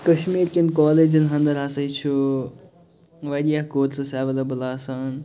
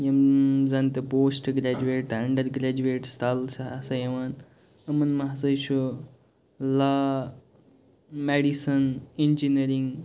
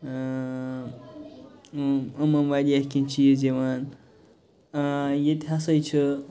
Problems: background sounds at intervals, background conversations at intervals